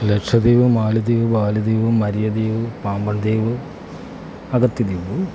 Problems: none marked